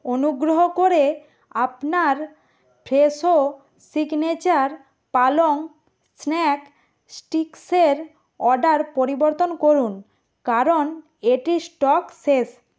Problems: none marked